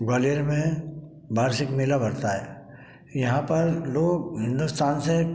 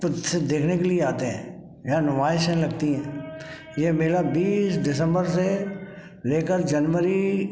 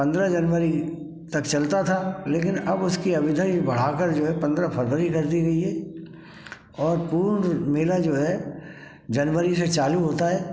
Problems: background sounds at intervals, background conversations at intervals